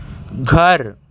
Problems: background sounds at intervals